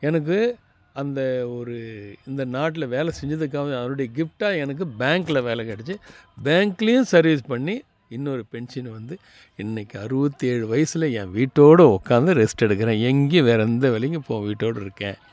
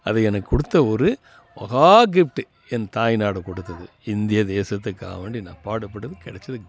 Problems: none marked